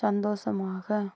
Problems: none marked